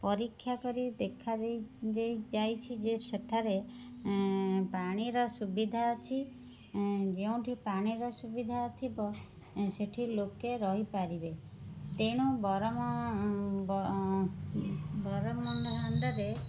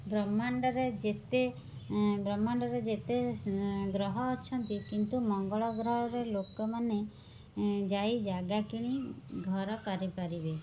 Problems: background sounds at intervals, background conversations at intervals, low volume